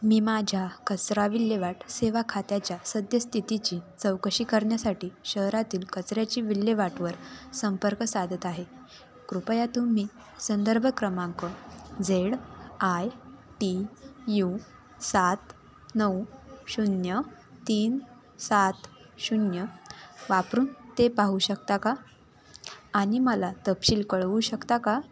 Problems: constant background noise, continuous background conversations